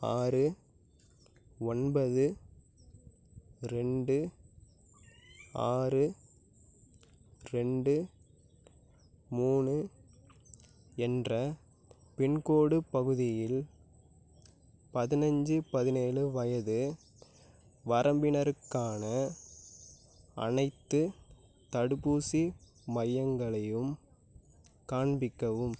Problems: none marked